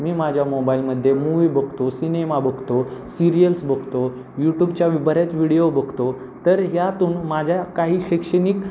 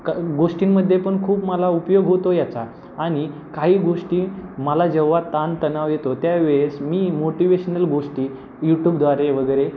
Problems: constant background noise